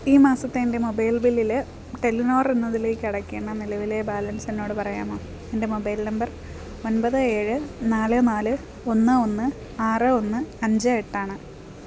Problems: background sounds at intervals